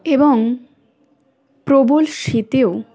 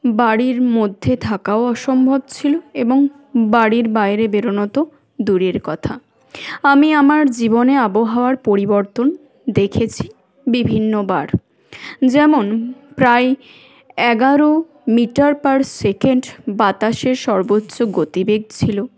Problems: none marked